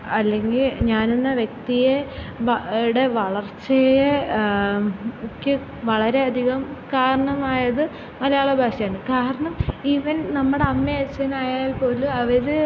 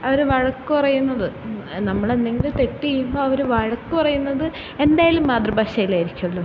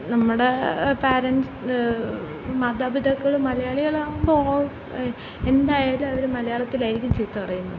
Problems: constant background noise